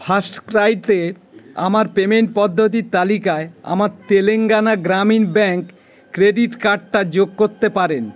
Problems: constant background noise